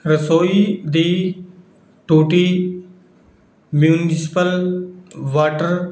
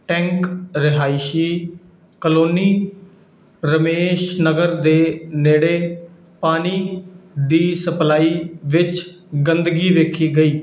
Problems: none marked